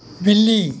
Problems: constant background noise